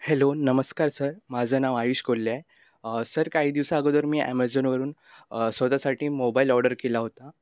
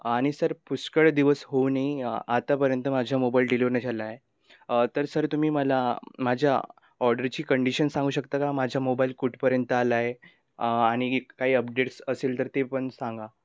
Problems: constant background noise